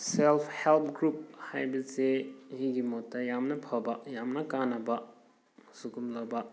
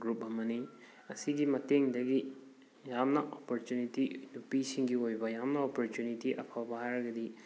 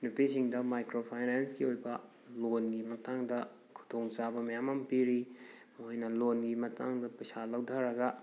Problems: background sounds at intervals